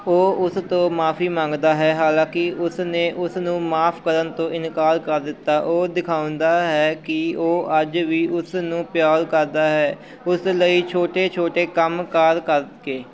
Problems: continuous background conversations